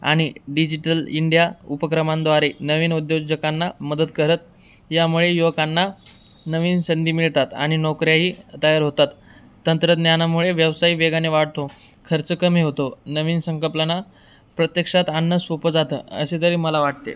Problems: background sounds at intervals